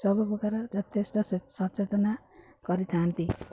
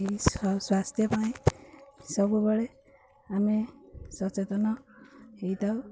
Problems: none marked